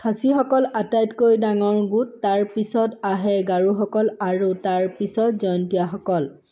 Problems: background sounds at intervals